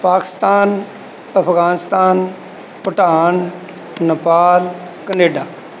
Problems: background sounds at intervals